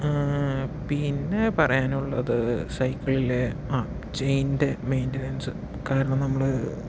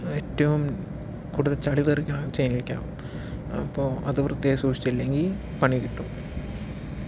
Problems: background sounds at intervals, low volume